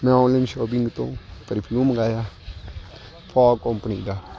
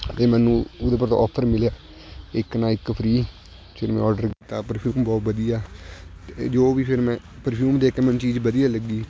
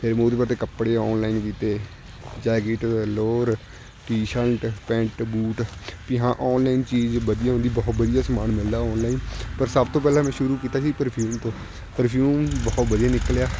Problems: constant background noise